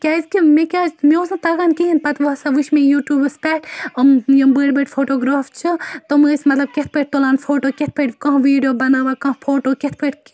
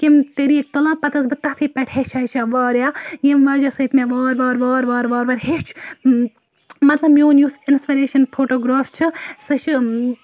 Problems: constant background noise